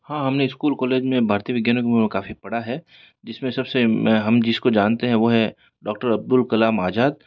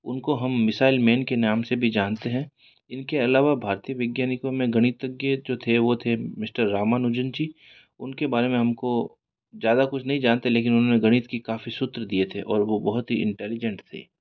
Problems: background sounds at intervals